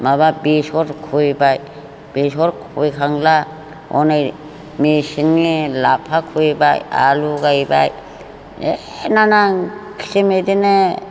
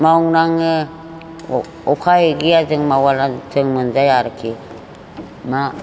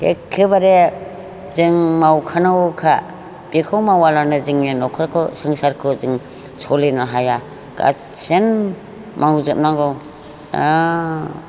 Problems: none marked